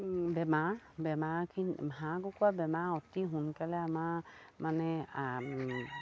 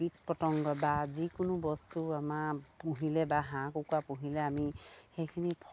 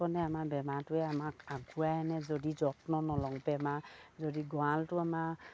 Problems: none marked